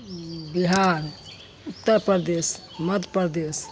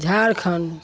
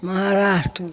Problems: constant background noise